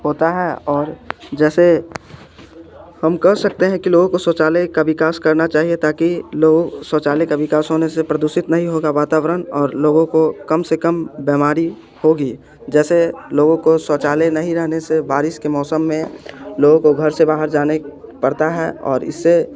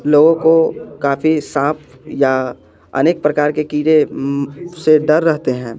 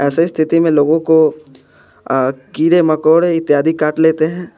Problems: constant background noise